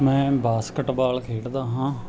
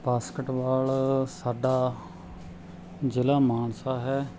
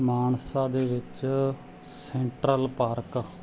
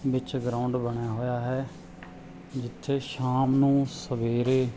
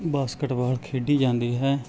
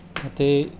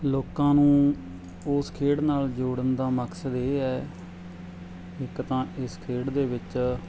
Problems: none marked